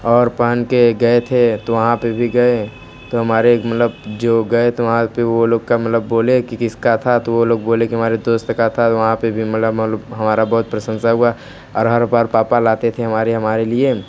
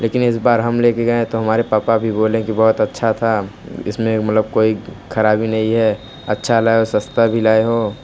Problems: none marked